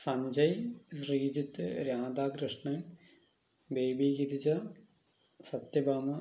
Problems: none marked